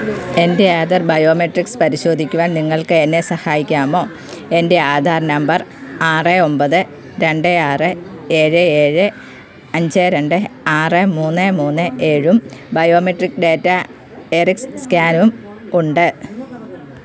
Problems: constant background noise